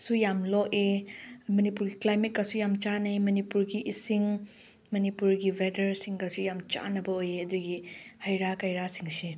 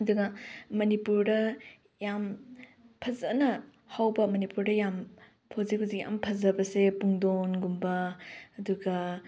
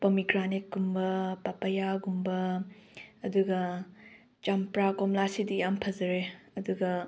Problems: none marked